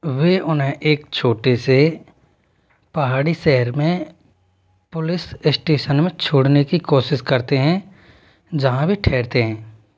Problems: background sounds at intervals